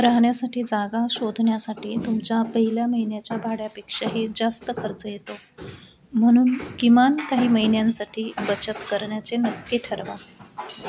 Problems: constant background noise, low volume